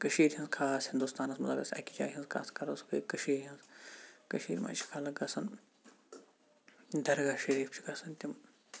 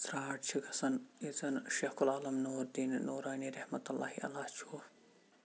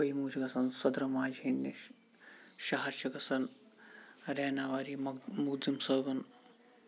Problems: background sounds at intervals, low volume